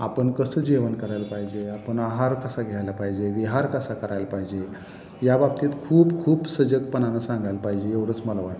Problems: constant background noise, echo